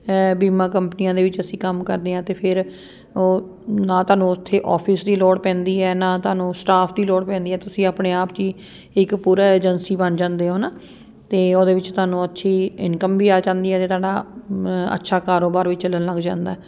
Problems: none marked